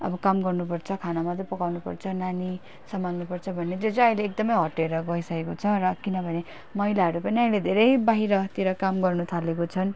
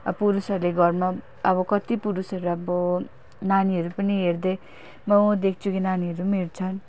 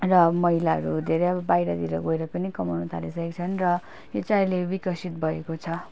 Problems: none marked